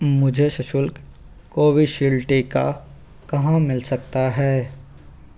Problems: none marked